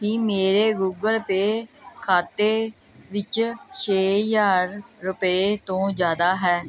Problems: background conversations at intervals